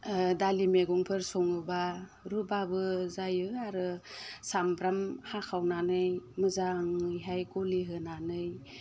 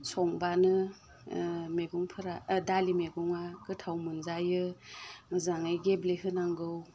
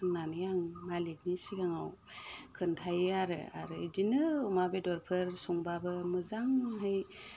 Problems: none marked